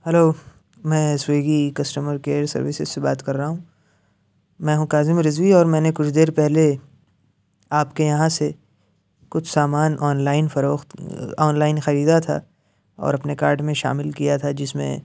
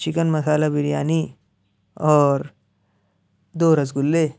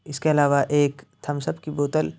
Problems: none marked